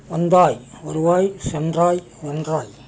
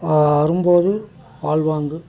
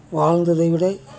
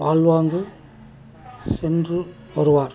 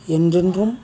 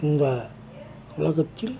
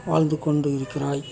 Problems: continuous background conversations